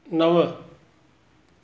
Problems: none marked